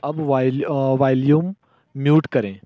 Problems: low volume